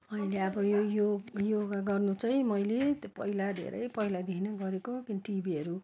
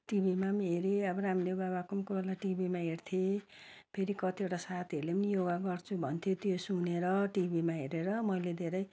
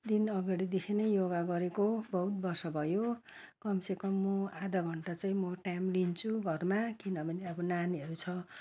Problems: none marked